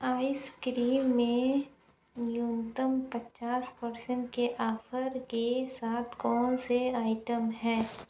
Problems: low volume